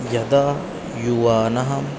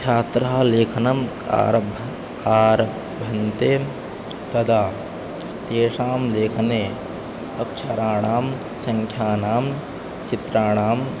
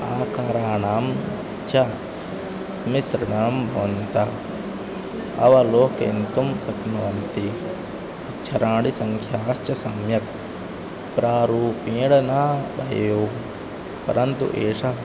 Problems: constant background noise